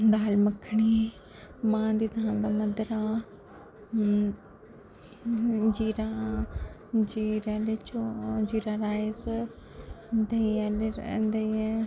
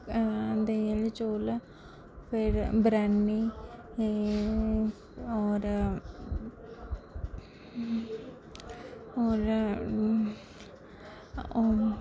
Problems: constant background noise, low volume